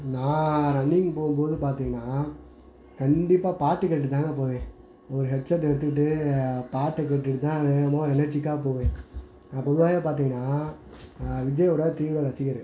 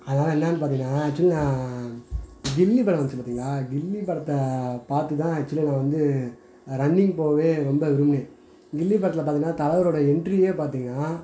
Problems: background sounds at intervals